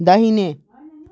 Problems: background sounds at intervals